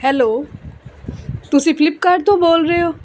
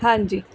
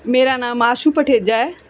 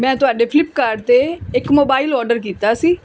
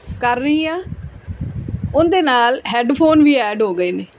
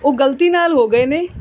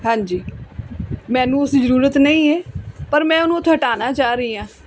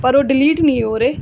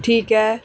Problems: background conversations at intervals